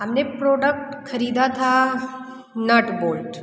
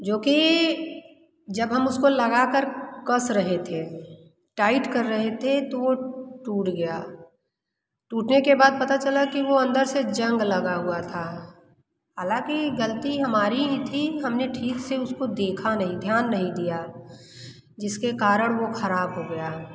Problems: none marked